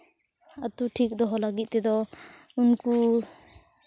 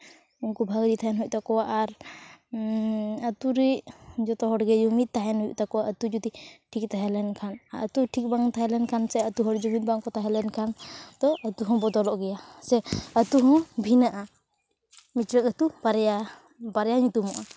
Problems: background sounds at intervals